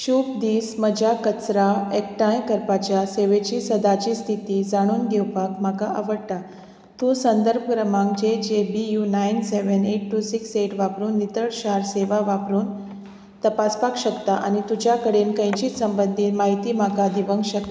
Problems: none marked